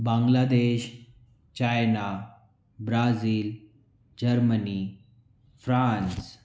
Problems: none marked